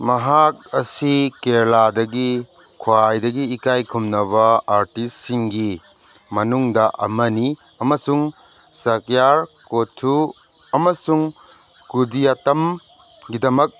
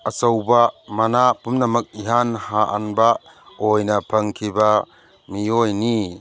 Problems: background sounds at intervals